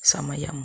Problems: constant background noise